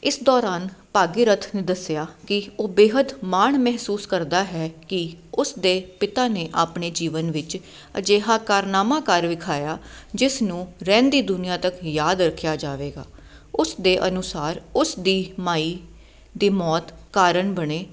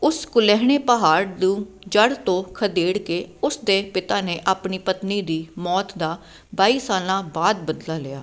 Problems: none marked